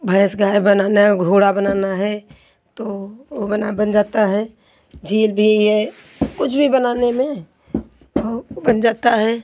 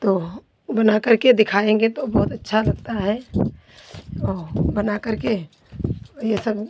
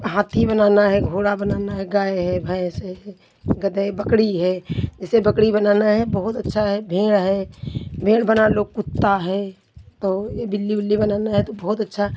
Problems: none marked